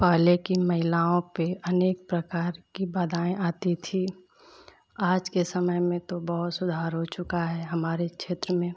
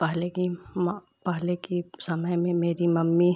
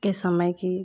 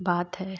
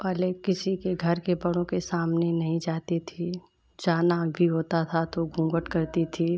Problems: none marked